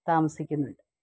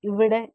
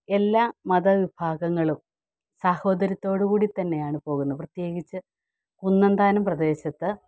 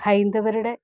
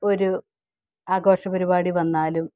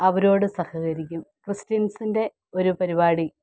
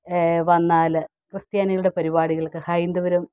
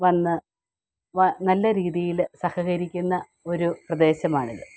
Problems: background sounds at intervals